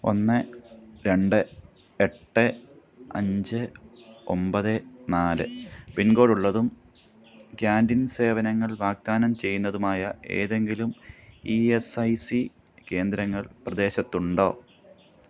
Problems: background sounds at intervals